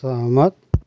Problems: background sounds at intervals